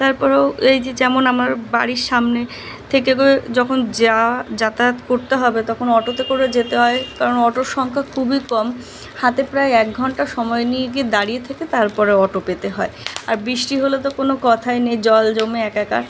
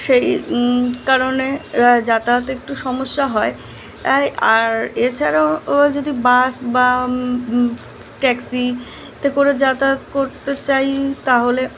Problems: constant background noise